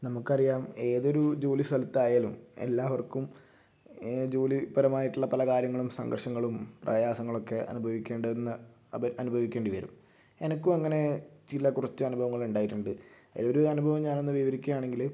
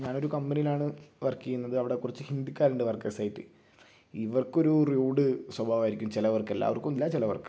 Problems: low volume